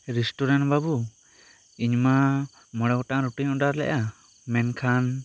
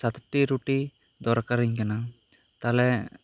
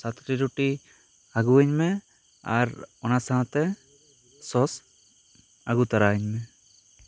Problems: constant background noise